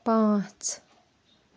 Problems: background sounds at intervals